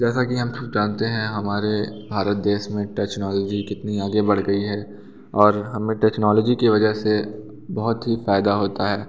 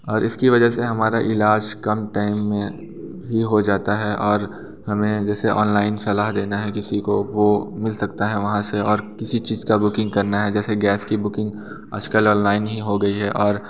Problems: constant background noise, continuous background conversations, echo